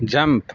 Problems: constant background noise